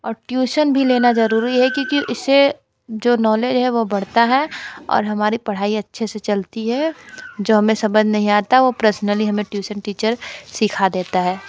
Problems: constant background noise, continuous background conversations